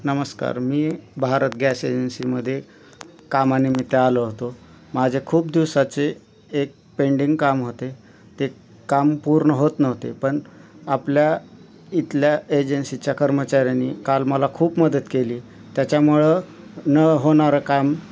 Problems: none marked